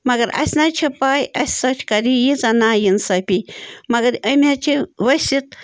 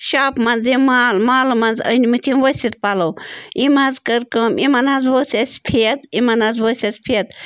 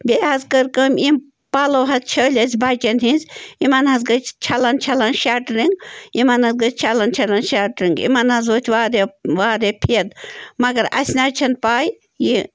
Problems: background sounds at intervals